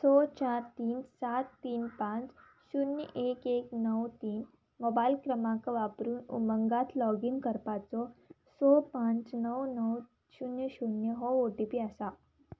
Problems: background sounds at intervals